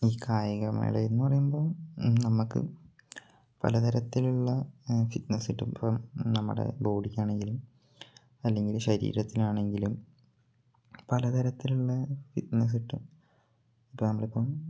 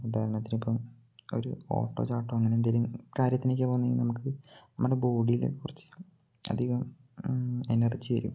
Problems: low volume